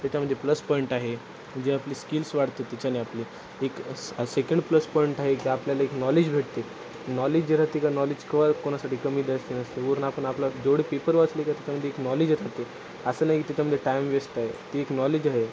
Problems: constant background noise